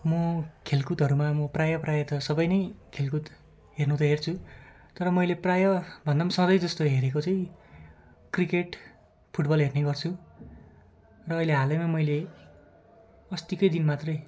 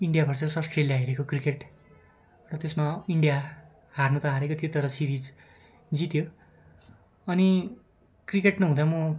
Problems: continuous background conversations